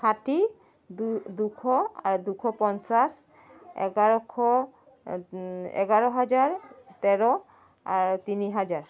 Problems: constant background noise